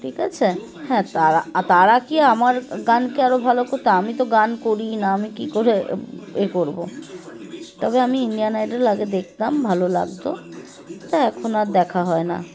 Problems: constant background noise, continuous background conversations